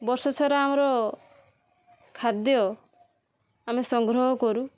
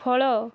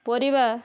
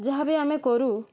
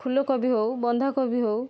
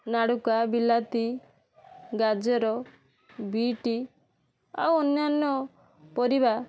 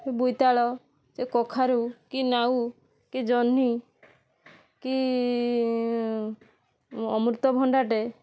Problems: constant background noise